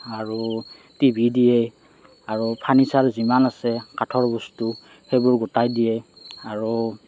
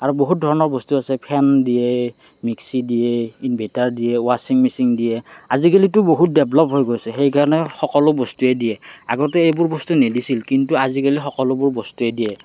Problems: background sounds at intervals, background conversations at intervals